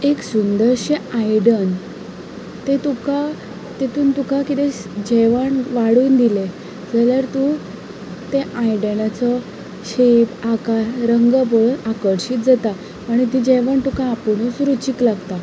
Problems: background conversations at intervals